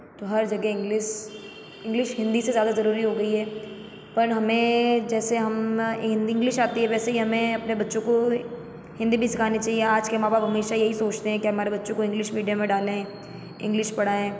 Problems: constant background noise, echo